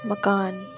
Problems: background sounds at intervals